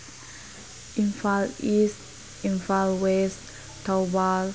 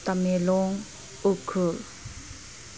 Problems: constant background noise